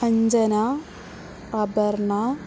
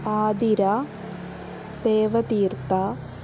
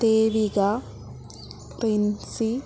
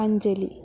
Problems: constant background noise